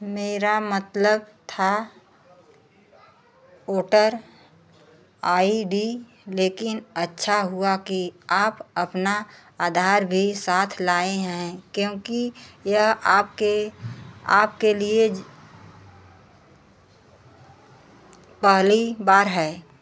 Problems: background sounds at intervals